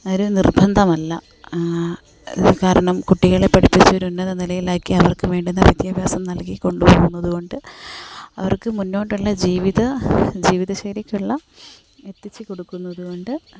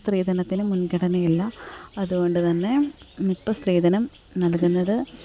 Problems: background sounds at intervals, background conversations at intervals, low volume